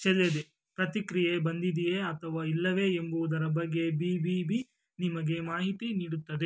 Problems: background sounds at intervals